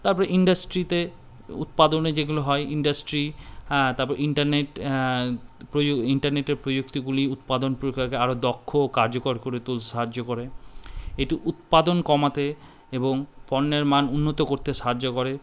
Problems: background sounds at intervals